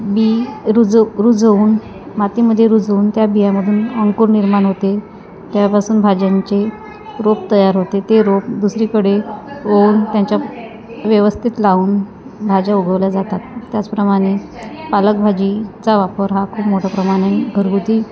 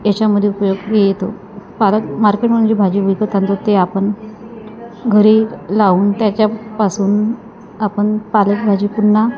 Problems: constant background noise, continuous background conversations